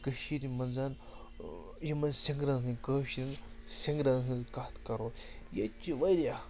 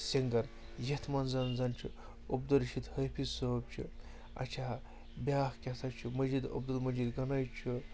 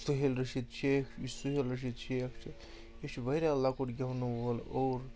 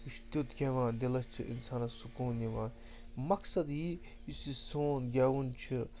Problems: constant background noise